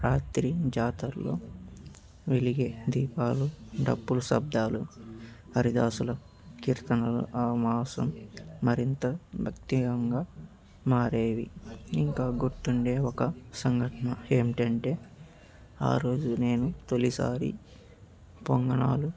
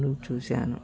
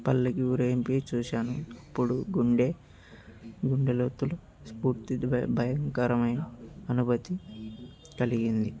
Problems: background sounds at intervals